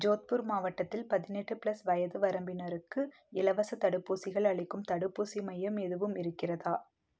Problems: low volume